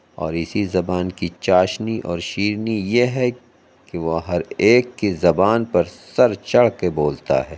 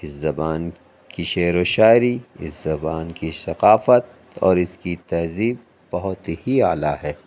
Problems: none marked